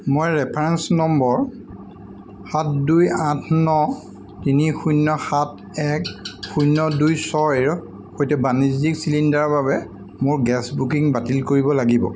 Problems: constant background noise